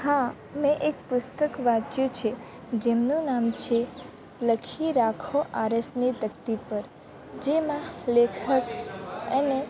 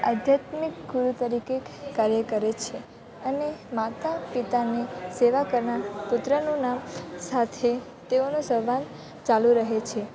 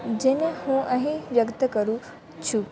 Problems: none marked